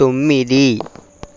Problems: none marked